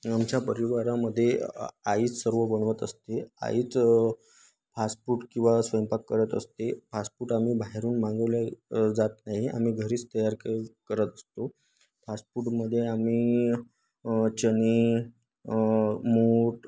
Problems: none marked